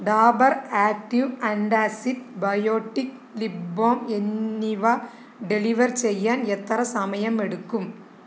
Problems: none marked